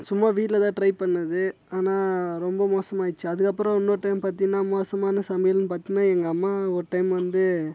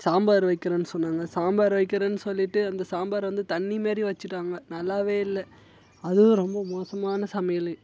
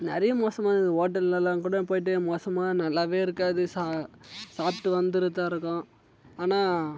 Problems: background sounds at intervals